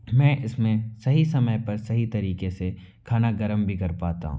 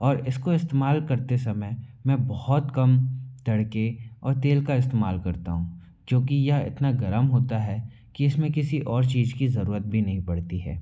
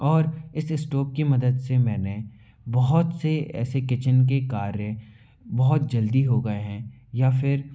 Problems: background sounds at intervals, echo